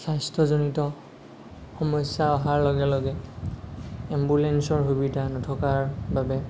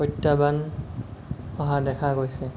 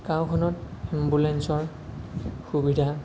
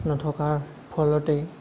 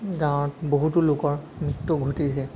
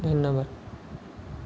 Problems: none marked